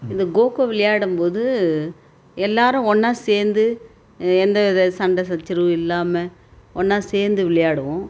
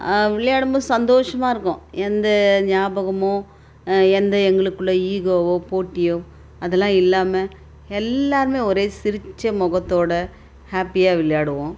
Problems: constant background noise